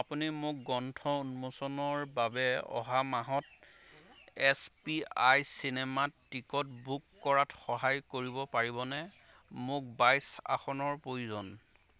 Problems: constant background noise, background conversations at intervals